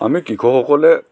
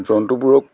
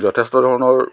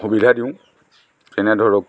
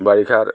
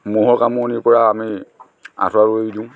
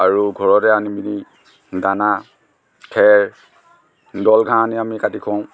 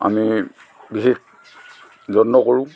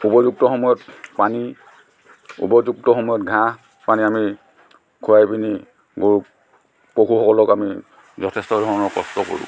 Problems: constant background noise